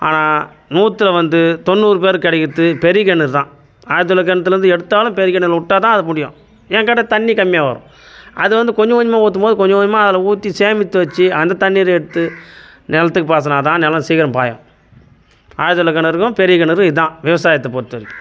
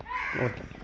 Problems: background sounds at intervals